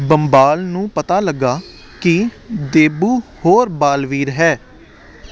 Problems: none marked